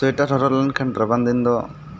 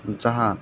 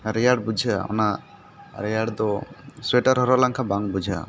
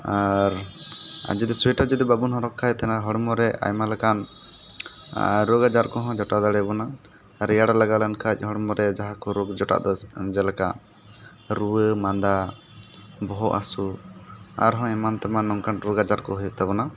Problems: constant background noise, background conversations at intervals